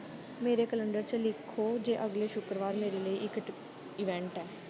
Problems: constant background noise, low volume